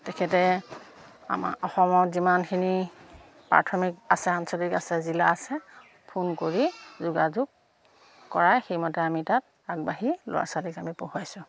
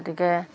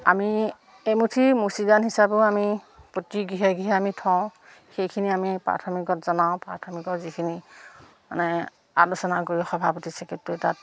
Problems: none marked